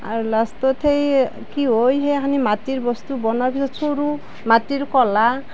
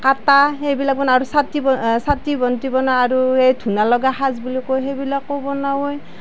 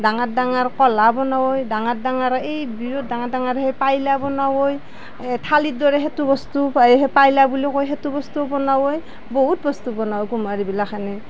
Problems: background sounds at intervals